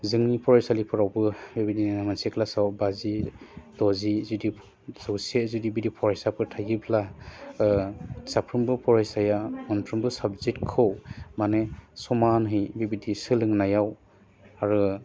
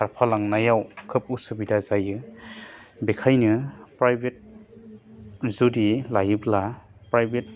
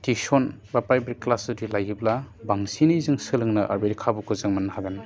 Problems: low volume